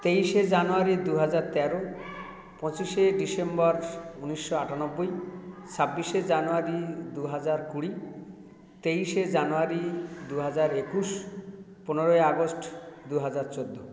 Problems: continuous background conversations